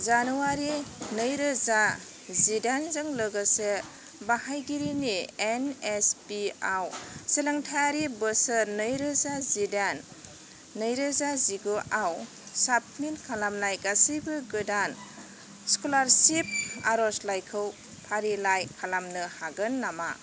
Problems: none marked